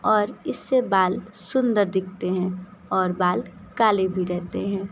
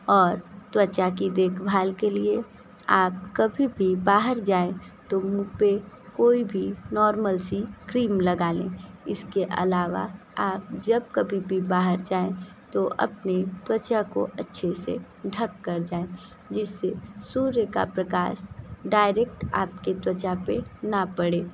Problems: constant background noise